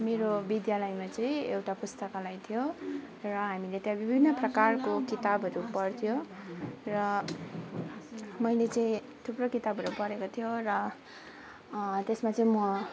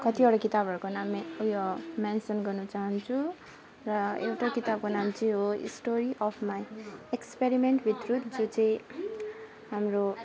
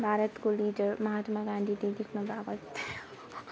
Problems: background conversations at intervals, low volume